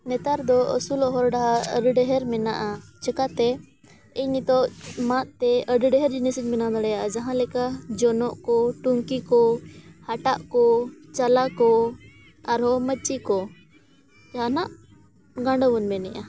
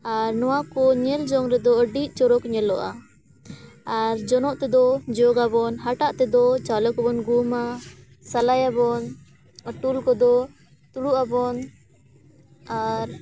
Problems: none marked